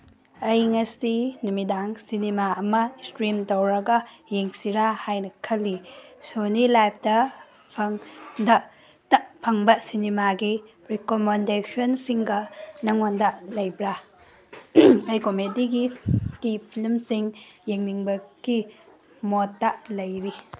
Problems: background sounds at intervals